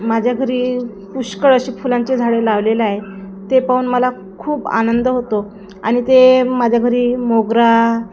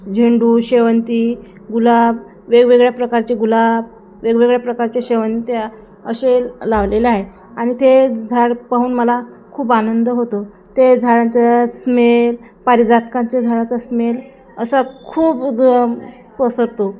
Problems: none marked